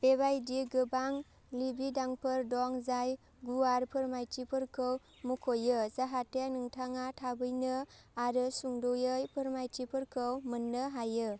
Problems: none marked